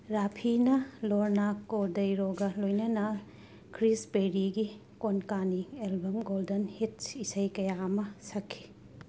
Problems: background sounds at intervals, low volume